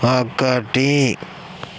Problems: constant background noise